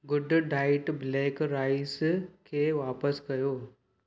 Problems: none marked